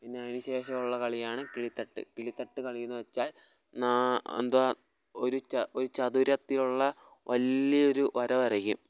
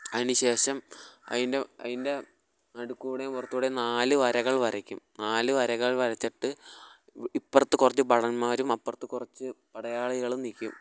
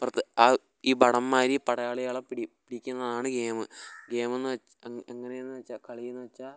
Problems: background sounds at intervals